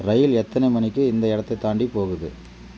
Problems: none marked